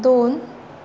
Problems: constant background noise